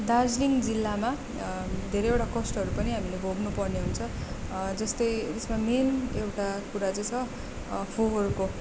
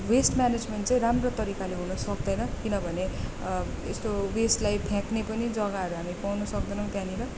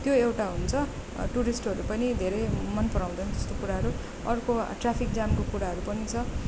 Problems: constant background noise